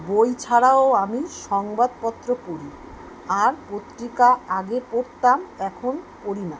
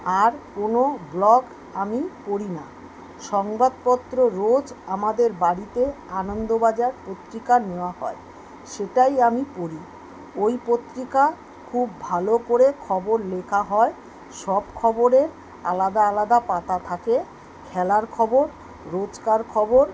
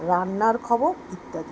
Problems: background sounds at intervals